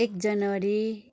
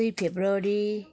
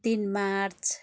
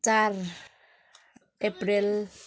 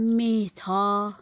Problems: constant background noise